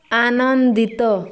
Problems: continuous background conversations